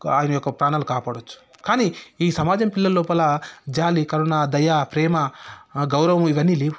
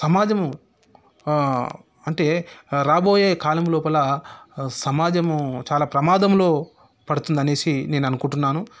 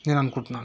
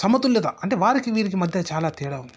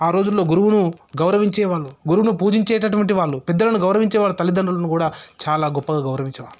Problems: none marked